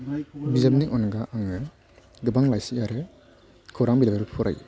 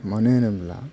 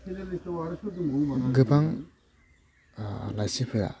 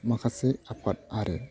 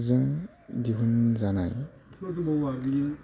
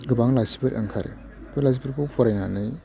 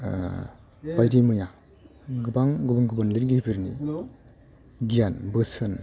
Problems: constant background noise